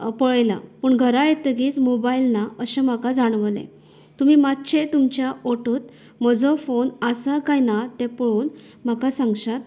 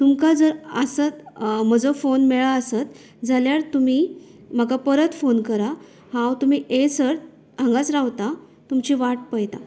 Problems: background sounds at intervals